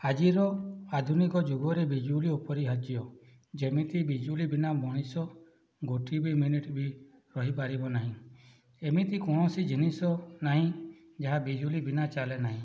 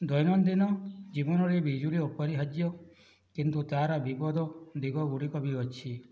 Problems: none marked